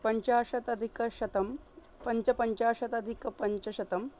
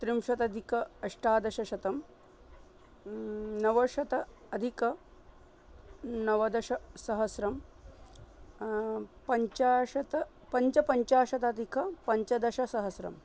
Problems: background sounds at intervals